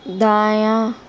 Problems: none marked